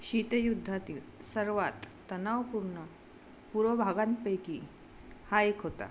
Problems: background sounds at intervals